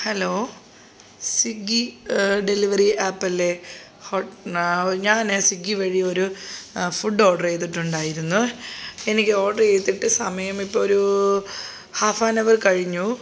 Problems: background sounds at intervals, background conversations at intervals